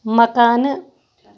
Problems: none marked